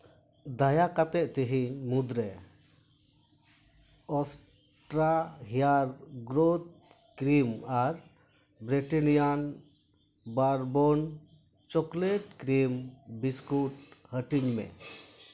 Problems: background sounds at intervals